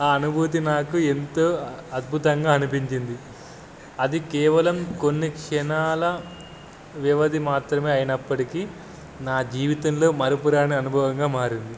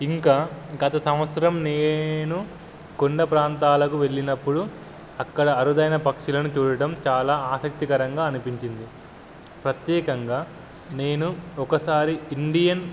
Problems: none marked